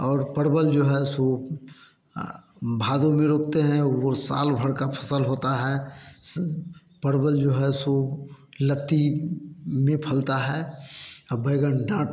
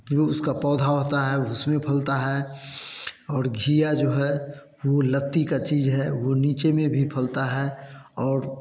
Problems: constant background noise